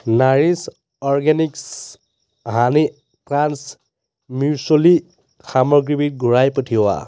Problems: background sounds at intervals